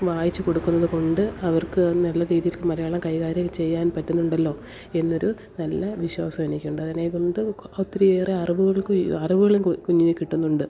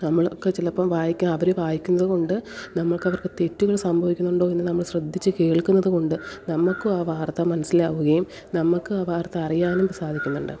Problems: background sounds at intervals, low volume